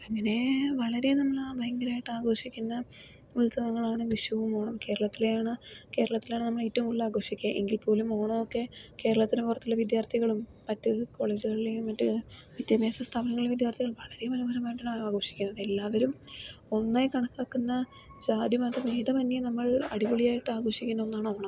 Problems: low volume